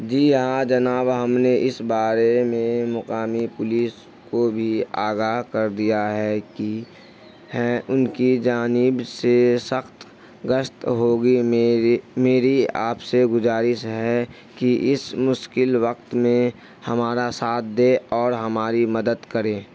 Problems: constant background noise